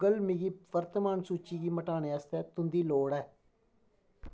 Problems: low volume